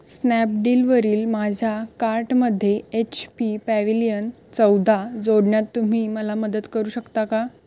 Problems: none marked